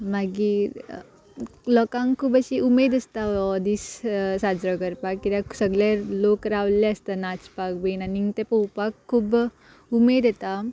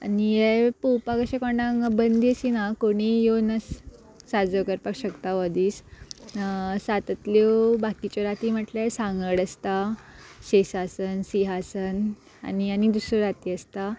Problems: background sounds at intervals